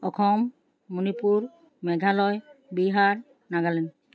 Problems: none marked